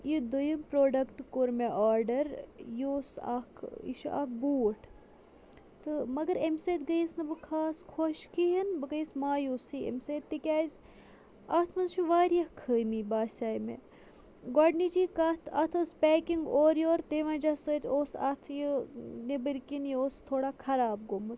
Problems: constant background noise